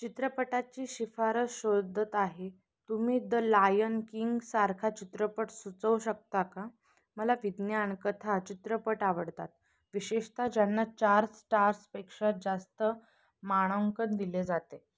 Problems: constant background noise